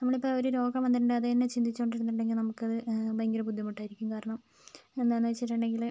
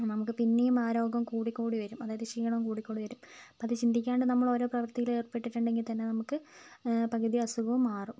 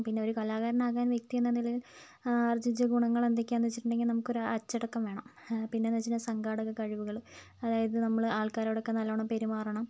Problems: none marked